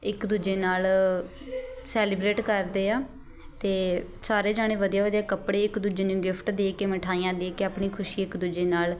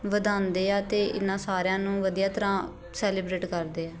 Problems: constant background noise